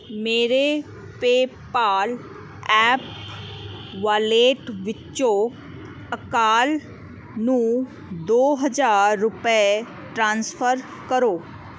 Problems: none marked